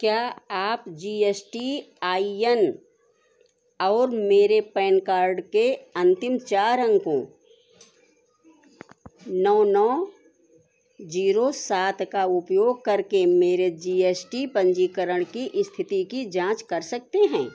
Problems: constant background noise